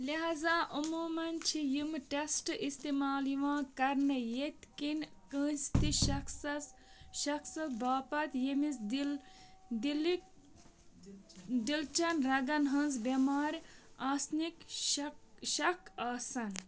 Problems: background sounds at intervals, background conversations at intervals